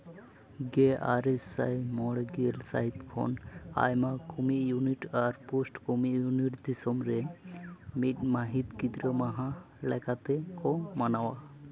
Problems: background sounds at intervals, background conversations at intervals